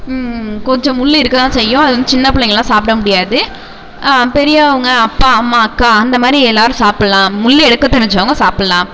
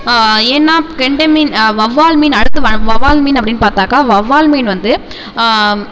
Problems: background sounds at intervals, echo